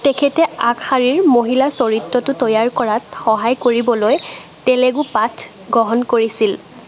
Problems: constant background noise